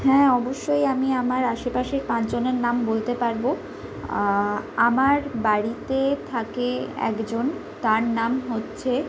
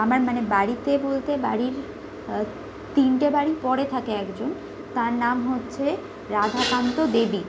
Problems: background sounds at intervals